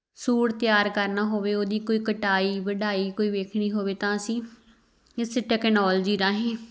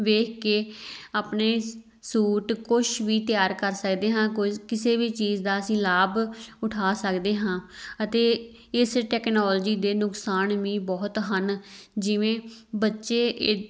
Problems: none marked